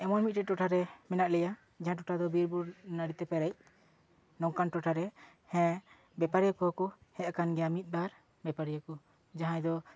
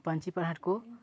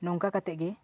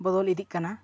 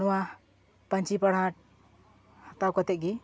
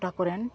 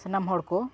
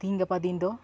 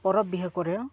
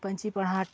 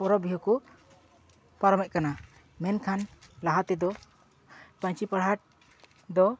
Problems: constant background noise